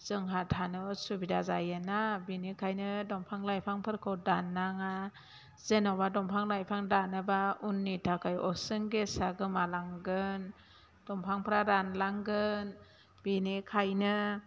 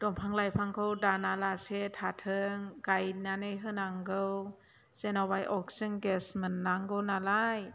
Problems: constant background noise